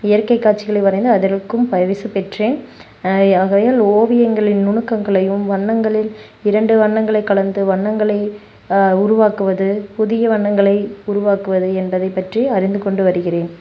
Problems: background sounds at intervals